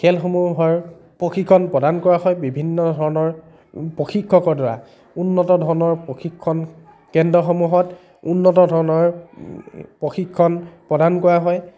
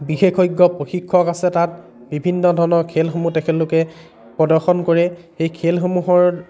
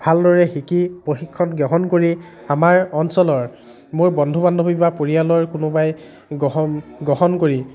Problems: constant background noise